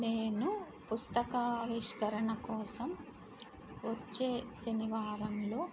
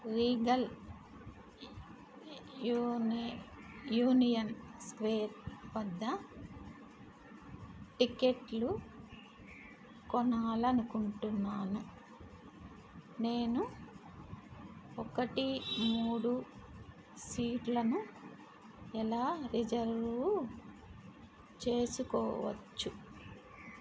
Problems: constant background noise